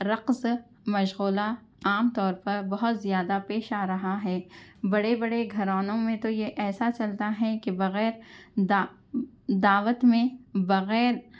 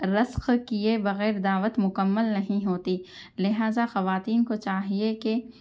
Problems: background conversations at intervals